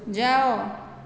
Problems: background conversations at intervals